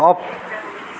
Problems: background sounds at intervals